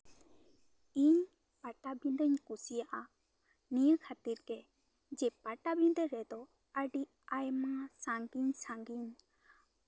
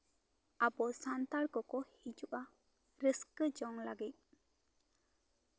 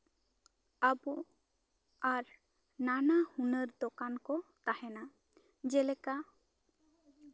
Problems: none marked